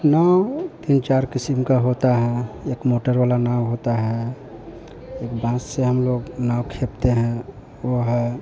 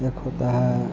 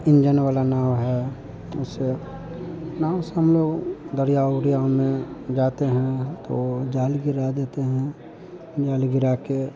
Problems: constant background noise